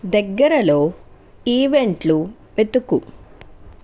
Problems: constant background noise